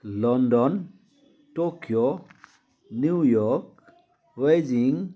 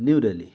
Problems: continuous background conversations